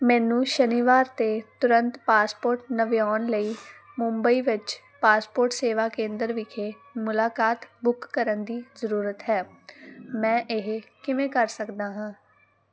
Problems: background sounds at intervals